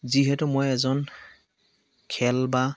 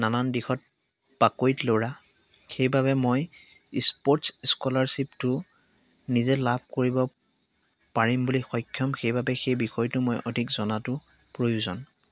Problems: none marked